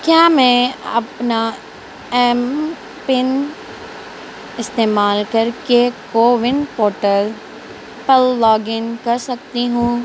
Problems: constant background noise